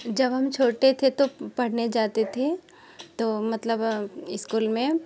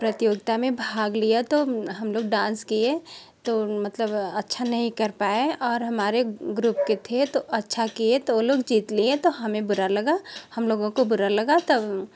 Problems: background sounds at intervals